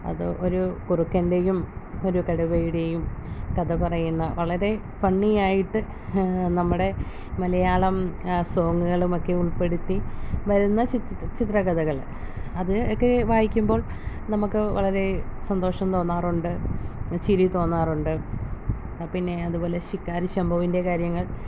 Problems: low volume